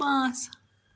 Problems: none marked